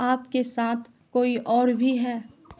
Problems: constant background noise